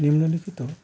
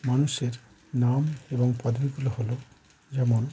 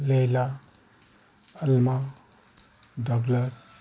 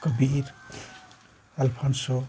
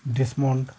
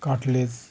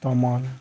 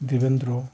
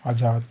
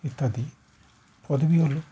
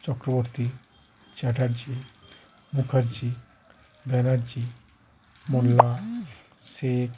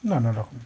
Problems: constant background noise, background conversations at intervals